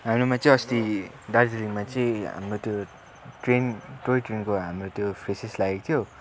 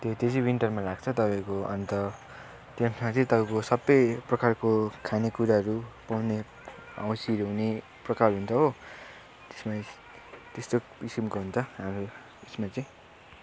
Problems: none marked